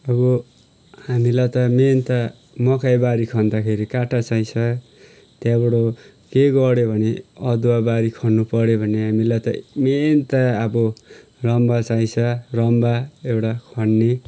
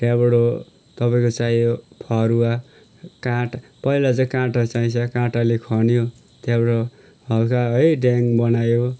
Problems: none marked